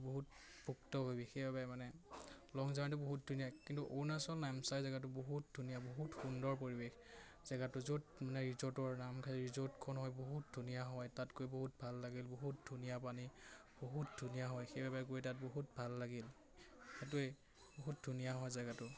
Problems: constant background noise, background conversations at intervals